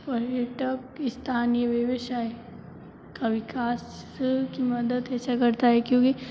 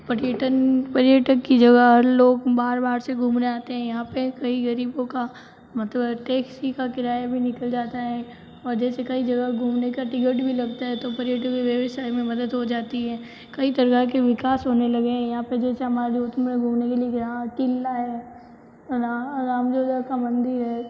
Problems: constant background noise, low volume